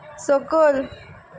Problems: none marked